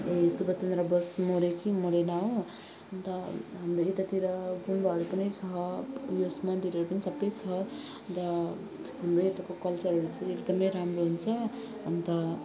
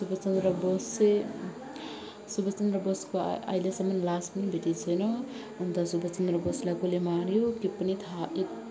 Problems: background sounds at intervals, continuous background conversations